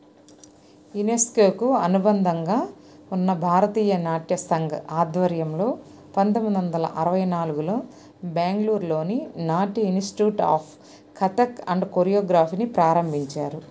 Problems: constant background noise